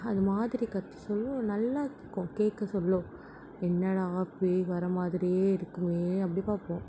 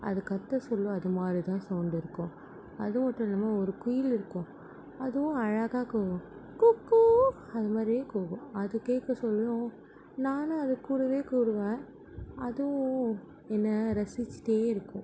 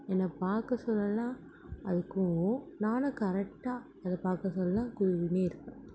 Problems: none marked